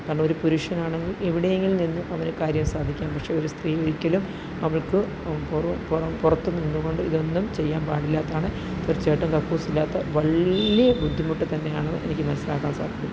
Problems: none marked